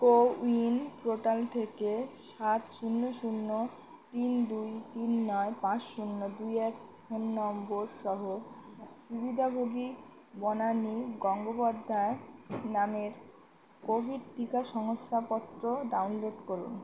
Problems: constant background noise, background conversations at intervals